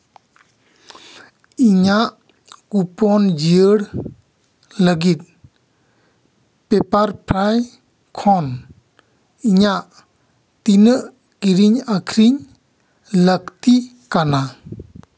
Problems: none marked